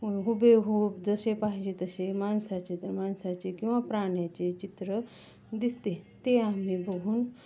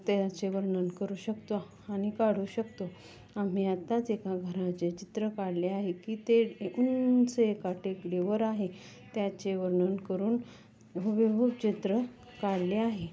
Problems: none marked